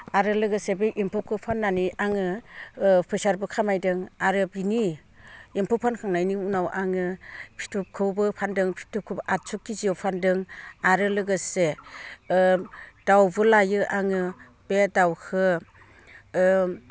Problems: low volume